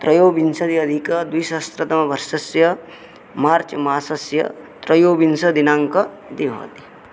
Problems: none marked